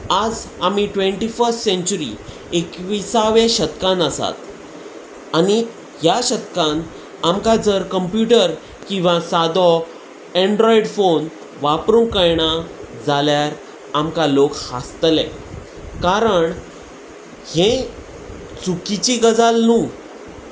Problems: constant background noise